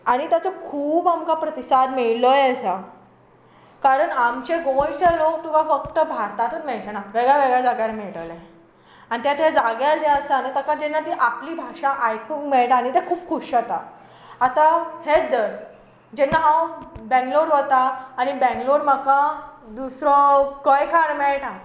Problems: constant background noise